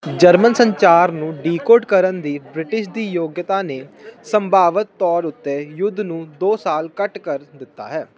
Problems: none marked